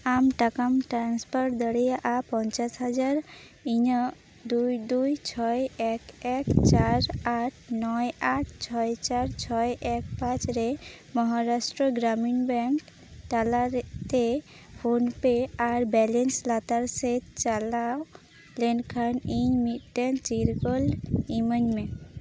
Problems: none marked